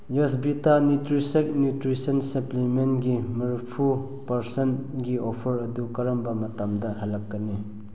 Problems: none marked